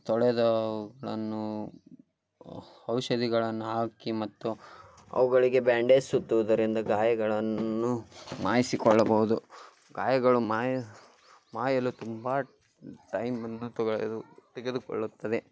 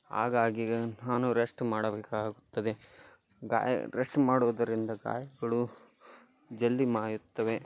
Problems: background sounds at intervals